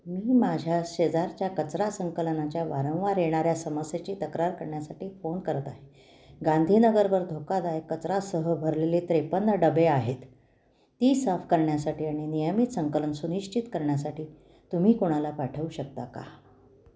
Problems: background sounds at intervals